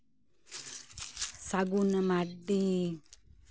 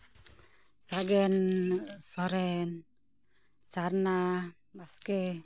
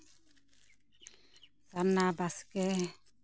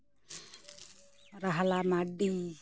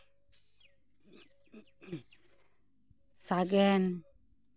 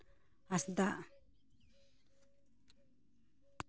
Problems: none marked